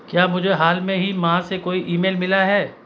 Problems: none marked